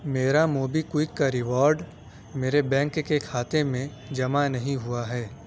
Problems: none marked